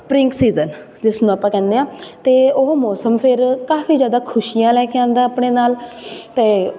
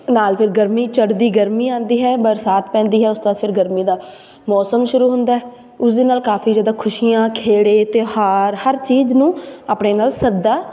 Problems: background sounds at intervals